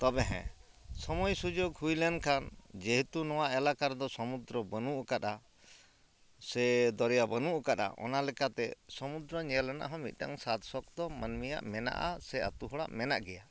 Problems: background sounds at intervals